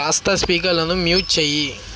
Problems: constant background noise